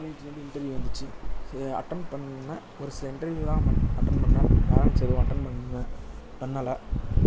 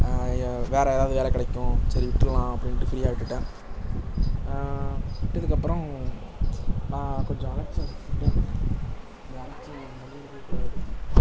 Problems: constant background noise